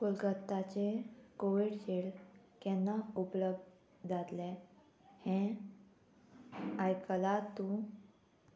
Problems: none marked